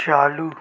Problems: none marked